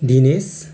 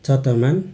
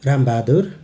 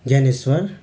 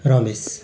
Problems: constant background noise